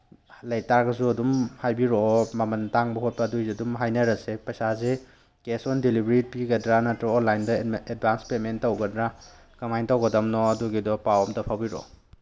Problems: background sounds at intervals